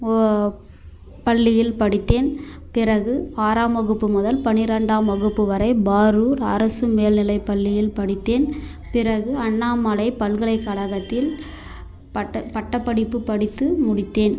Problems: none marked